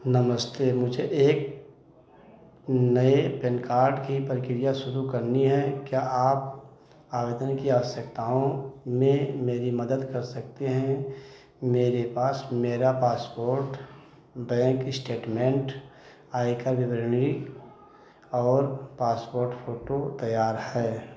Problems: none marked